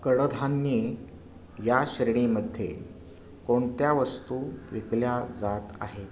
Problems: none marked